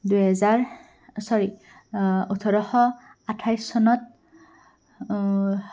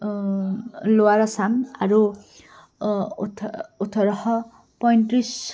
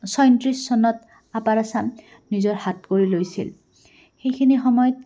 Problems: background sounds at intervals, background conversations at intervals